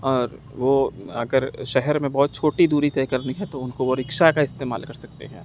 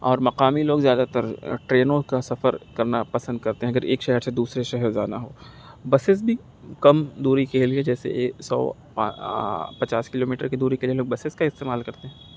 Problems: none marked